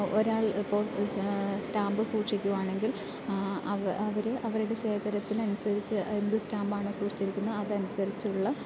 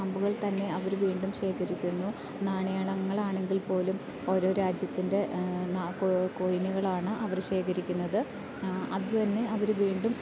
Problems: constant background noise, low volume